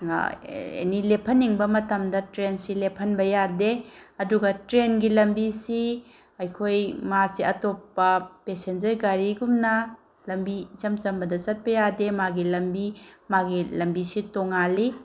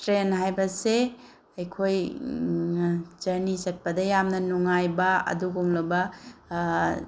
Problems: none marked